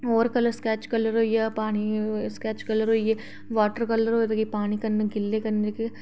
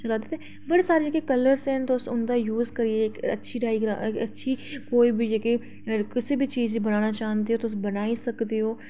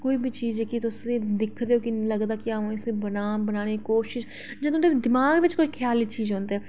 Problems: background conversations at intervals